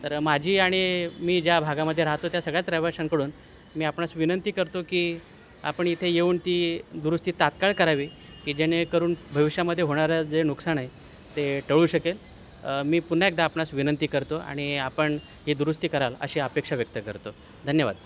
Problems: constant background noise